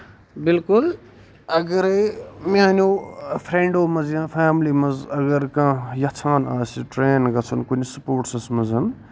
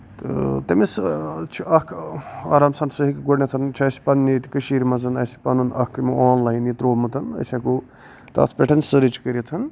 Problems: none marked